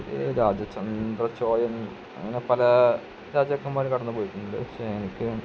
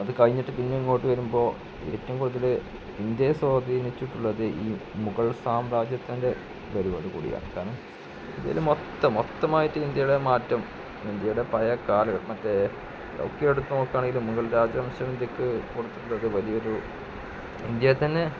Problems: constant background noise, low volume